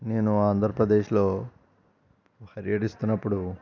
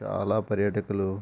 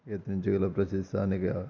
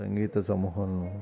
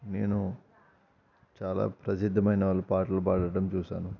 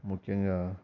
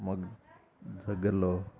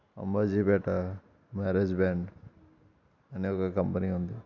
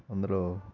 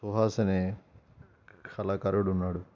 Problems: constant background noise, background conversations at intervals